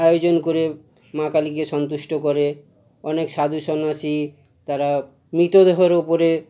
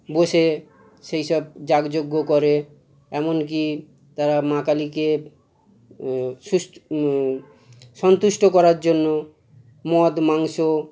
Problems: none marked